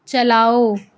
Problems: none marked